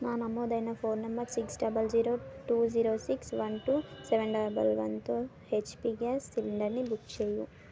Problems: constant background noise